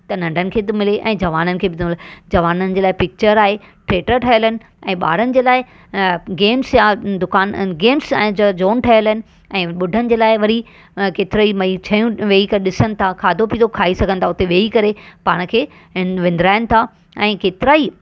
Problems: none marked